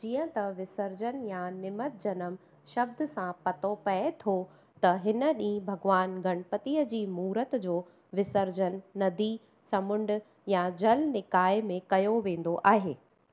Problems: constant background noise